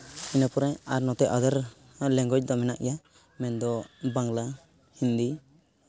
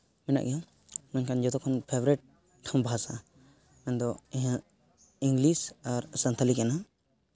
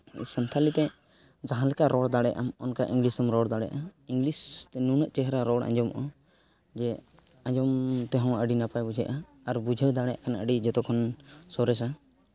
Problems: background sounds at intervals, background conversations at intervals